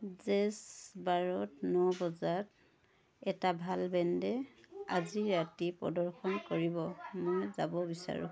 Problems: background sounds at intervals, continuous background conversations